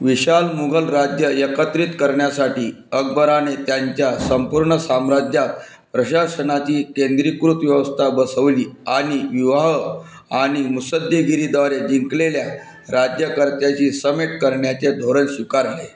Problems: constant background noise